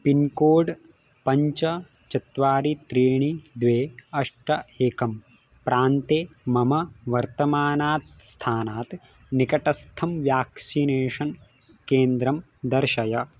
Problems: background sounds at intervals